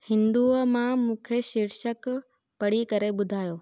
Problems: none marked